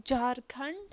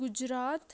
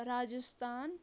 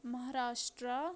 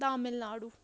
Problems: background sounds at intervals